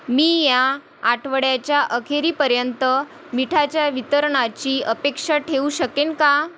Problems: none marked